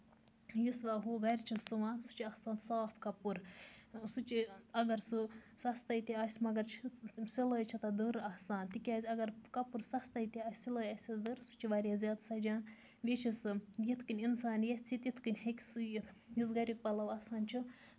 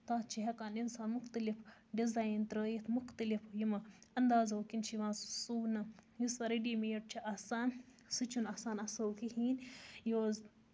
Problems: none marked